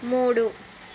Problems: constant background noise